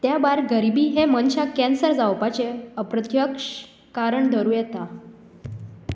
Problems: background sounds at intervals